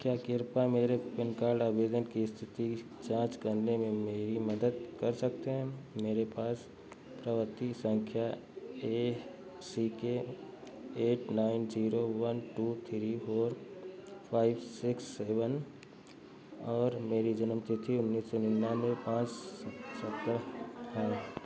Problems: constant background noise, low volume